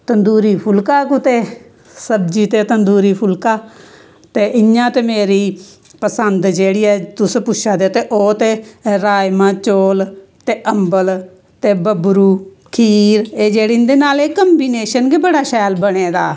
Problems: none marked